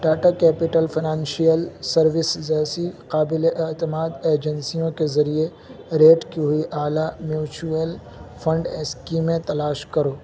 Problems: background sounds at intervals, low volume